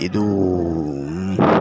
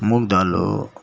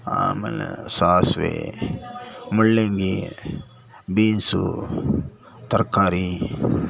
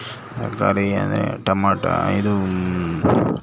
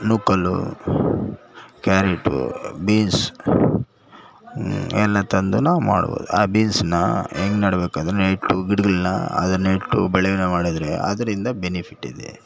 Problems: background sounds at intervals